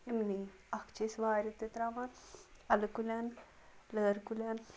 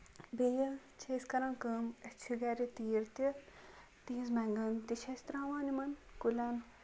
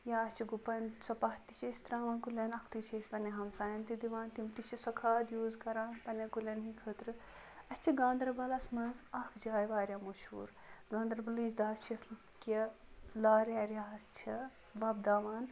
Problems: background sounds at intervals